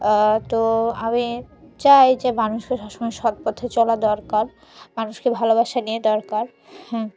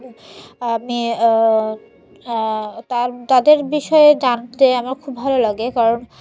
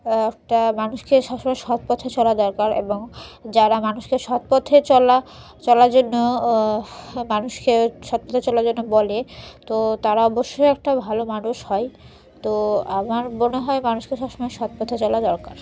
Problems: background sounds at intervals